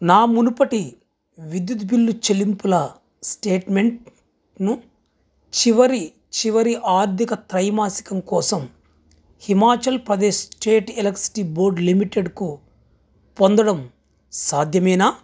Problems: background sounds at intervals